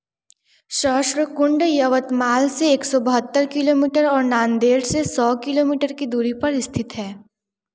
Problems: none marked